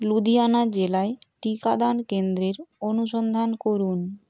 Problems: constant background noise